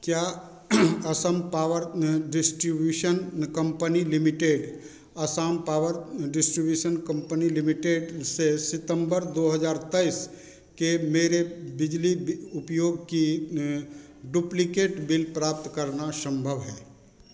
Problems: constant background noise